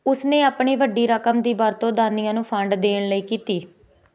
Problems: constant background noise